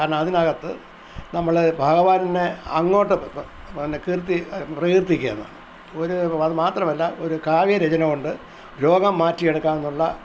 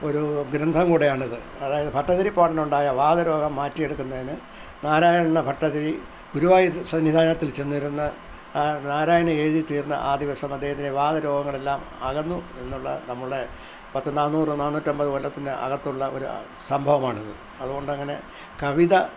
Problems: none marked